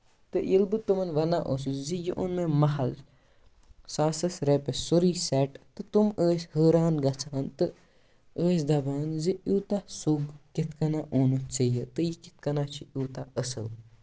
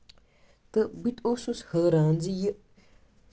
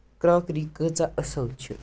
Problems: background sounds at intervals